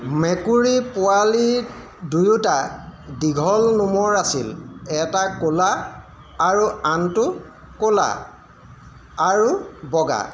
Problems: constant background noise